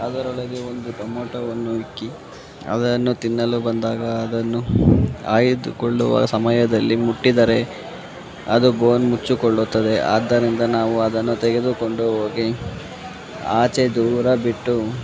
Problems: constant background noise